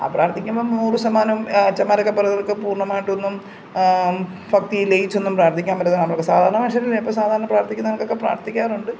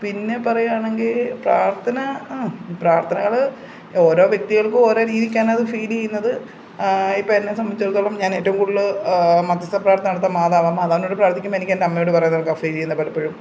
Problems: none marked